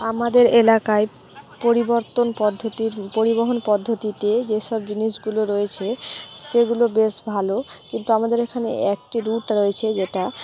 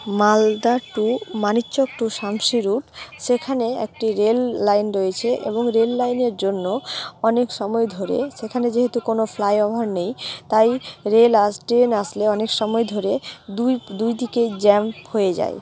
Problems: constant background noise, continuous background conversations